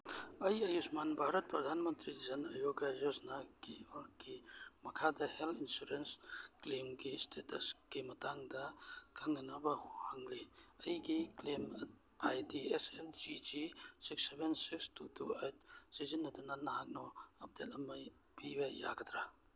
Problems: none marked